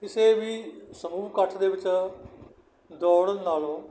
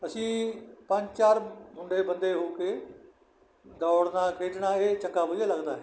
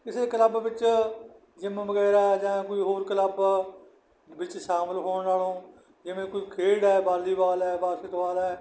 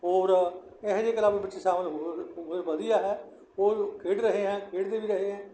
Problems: background sounds at intervals